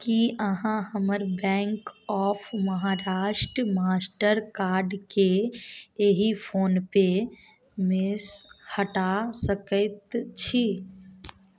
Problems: none marked